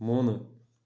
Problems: low volume